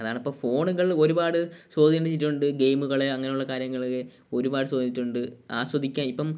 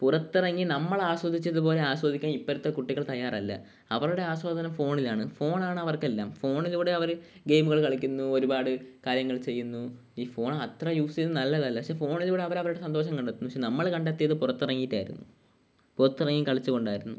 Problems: none marked